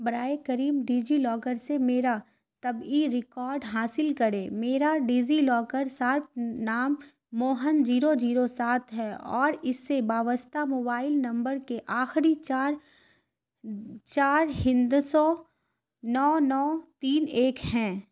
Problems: constant background noise